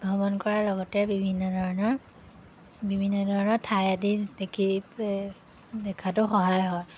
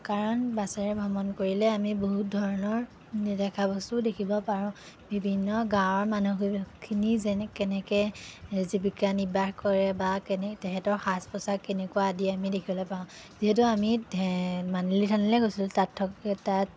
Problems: none marked